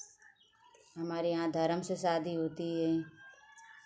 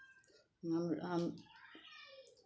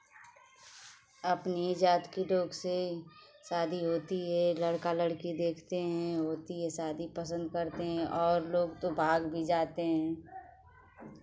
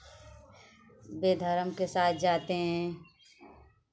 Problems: constant background noise